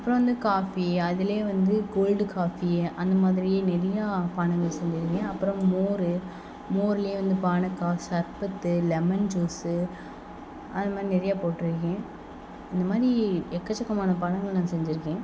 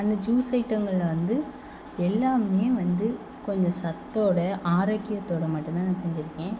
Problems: background sounds at intervals